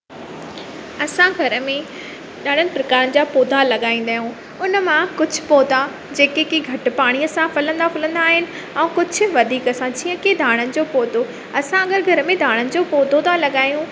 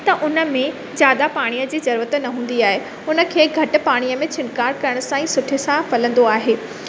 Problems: constant background noise, echo